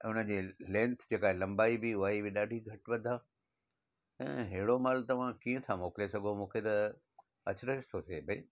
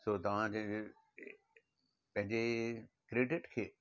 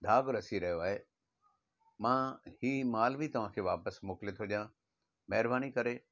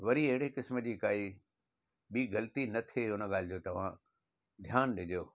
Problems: none marked